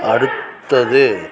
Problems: background sounds at intervals